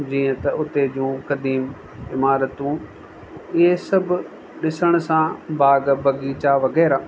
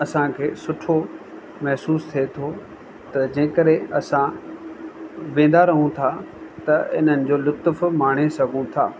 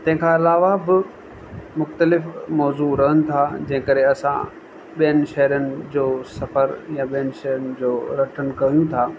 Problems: constant background noise, echo